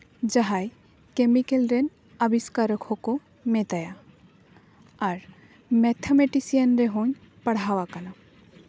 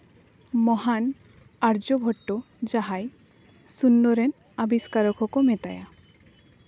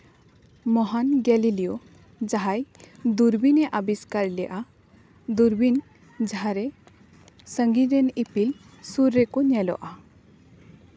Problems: none marked